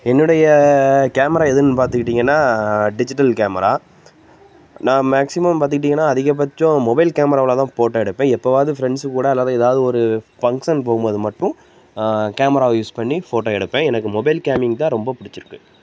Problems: constant background noise